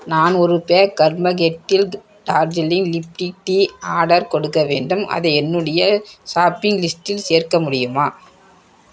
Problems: background sounds at intervals